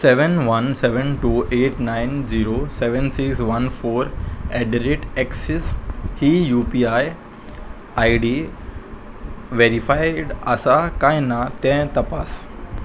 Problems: constant background noise